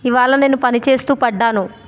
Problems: constant background noise